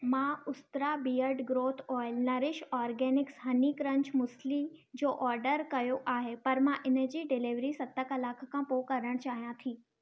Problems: none marked